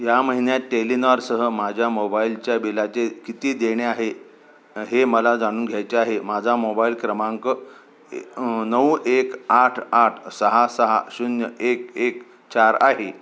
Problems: constant background noise